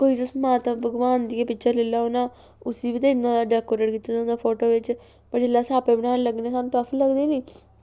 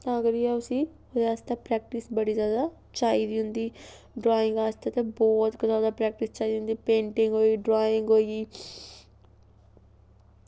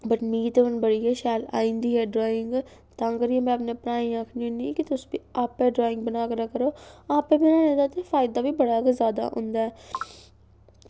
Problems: background sounds at intervals